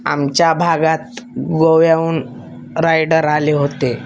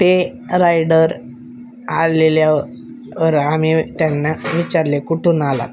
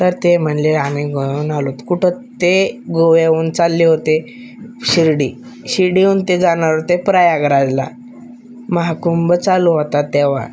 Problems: none marked